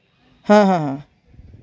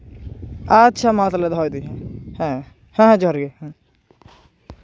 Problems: none marked